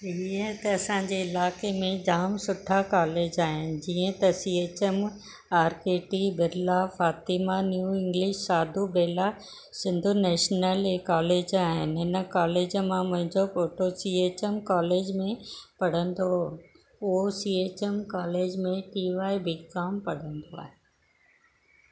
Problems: constant background noise